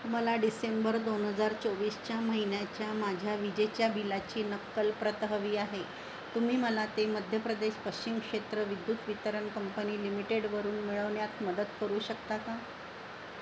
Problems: constant background noise